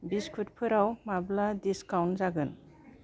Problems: low volume